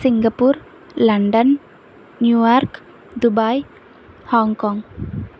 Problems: constant background noise